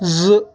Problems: none marked